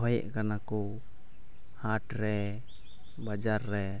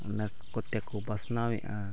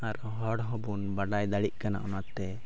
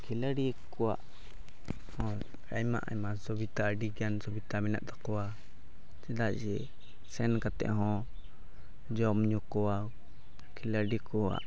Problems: background sounds at intervals, low volume